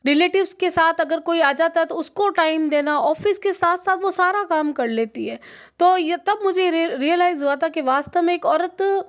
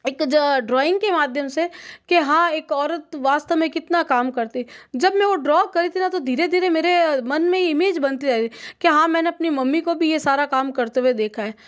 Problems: none marked